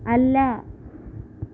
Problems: constant background noise